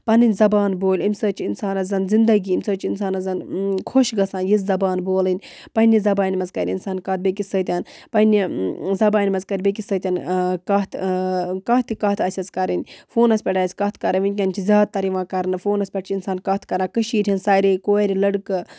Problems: none marked